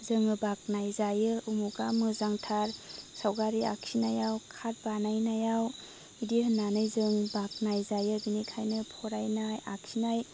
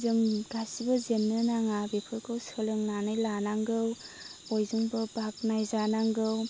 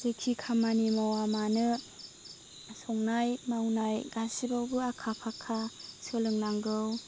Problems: constant background noise